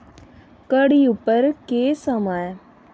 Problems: background sounds at intervals